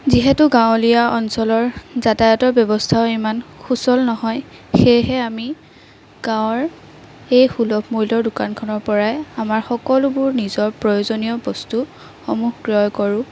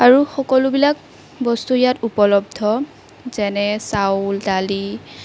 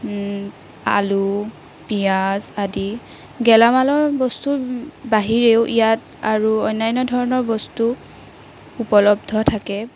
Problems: constant background noise